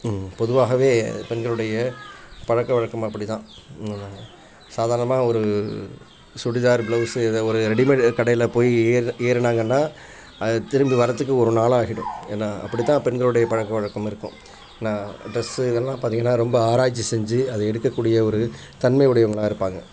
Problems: constant background noise, continuous background conversations